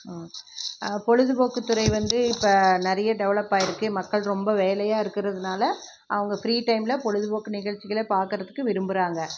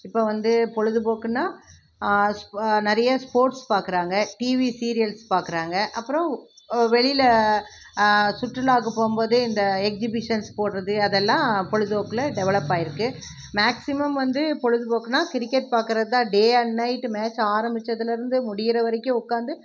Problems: none marked